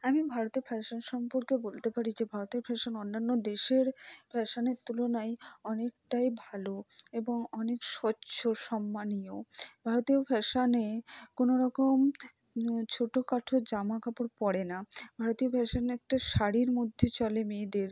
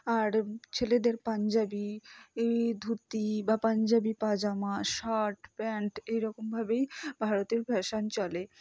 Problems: low volume